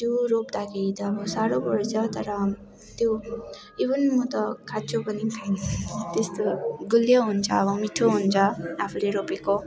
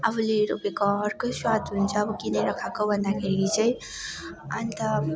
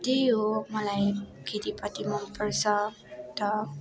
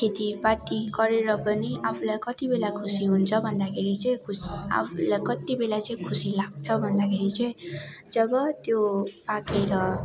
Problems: constant background noise, continuous background conversations